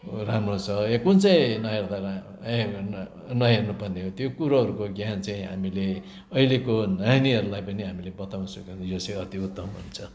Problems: constant background noise